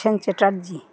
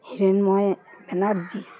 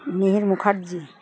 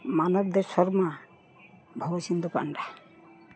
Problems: constant background noise, background conversations at intervals